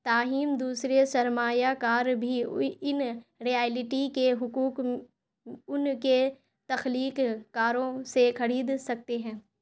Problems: none marked